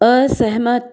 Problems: background sounds at intervals